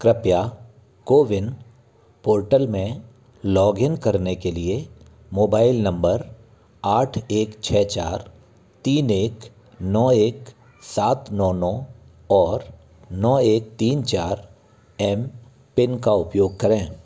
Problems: none marked